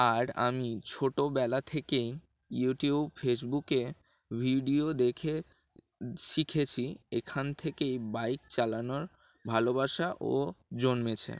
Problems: background sounds at intervals